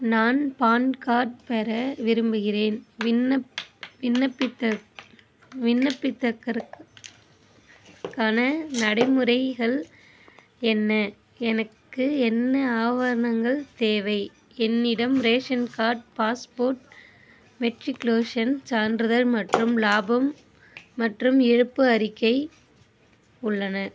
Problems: constant background noise